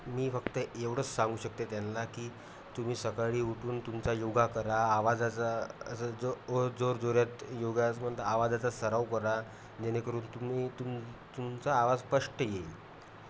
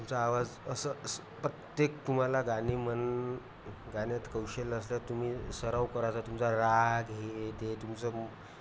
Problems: none marked